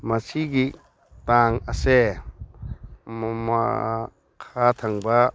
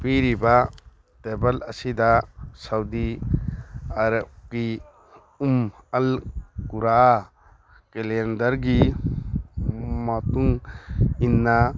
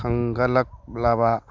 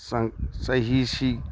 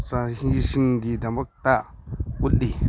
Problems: background sounds at intervals